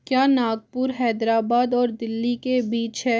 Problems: none marked